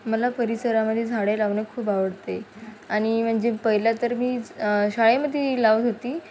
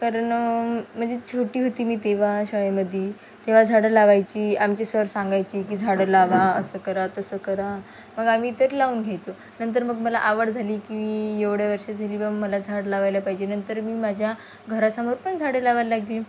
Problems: constant background noise